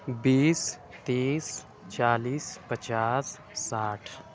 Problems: background sounds at intervals